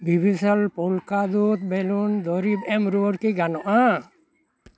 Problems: background conversations at intervals